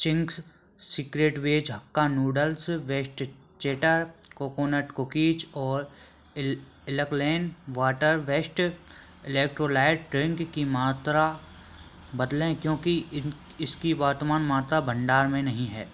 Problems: background sounds at intervals